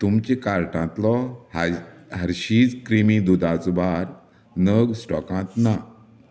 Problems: background sounds at intervals